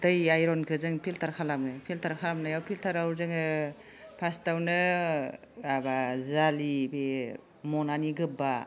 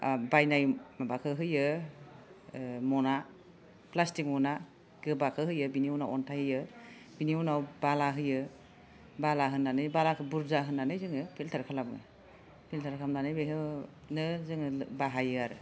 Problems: background conversations at intervals